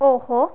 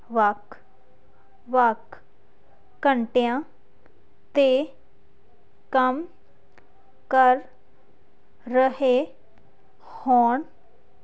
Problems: none marked